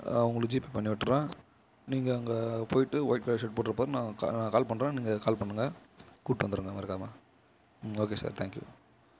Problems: low volume